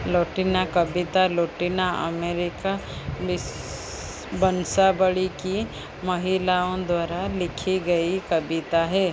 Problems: constant background noise